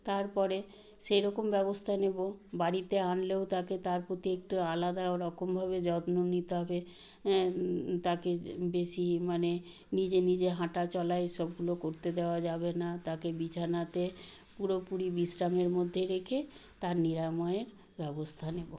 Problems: background sounds at intervals